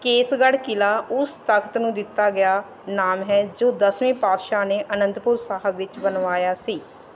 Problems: background sounds at intervals